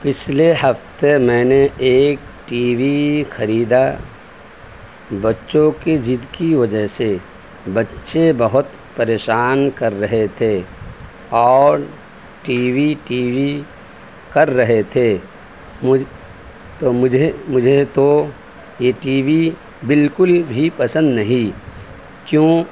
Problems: constant background noise, background conversations at intervals